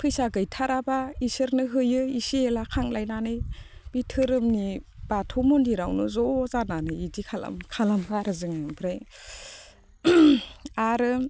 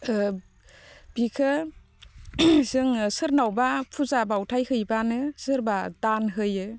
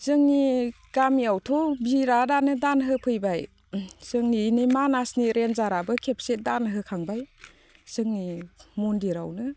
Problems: constant background noise